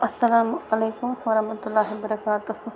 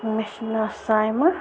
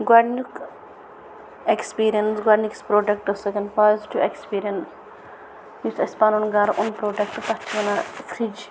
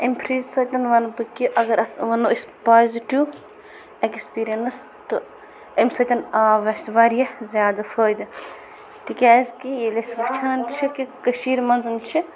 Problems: constant background noise